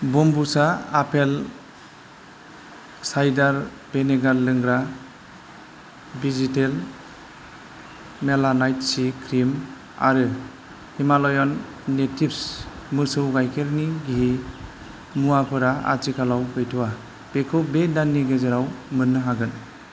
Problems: constant background noise